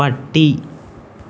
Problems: constant background noise